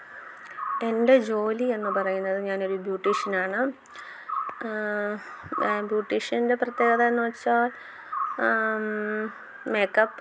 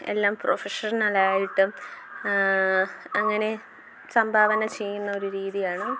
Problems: background sounds at intervals